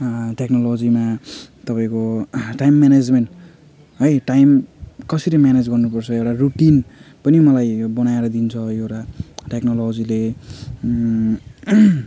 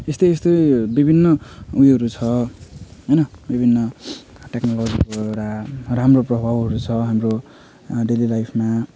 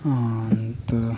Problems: background sounds at intervals